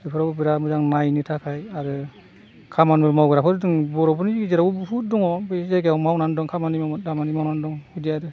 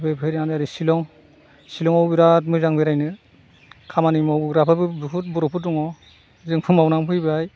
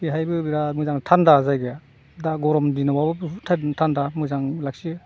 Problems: background sounds at intervals